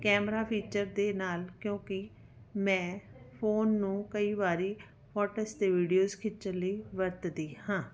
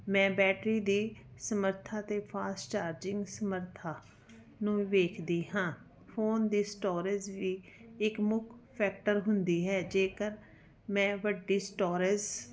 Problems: background conversations at intervals